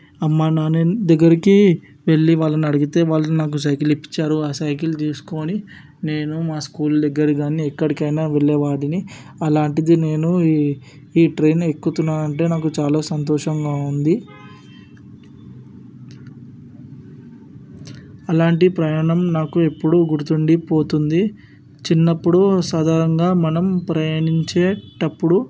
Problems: none marked